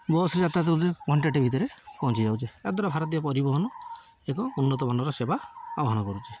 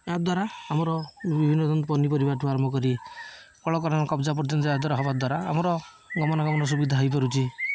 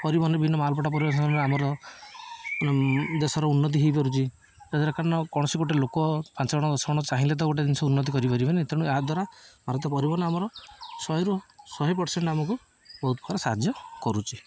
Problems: none marked